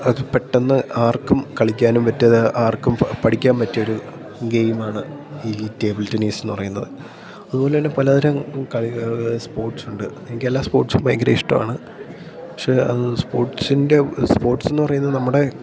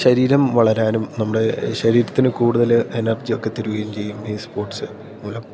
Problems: background sounds at intervals